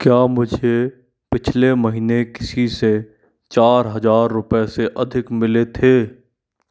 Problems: none marked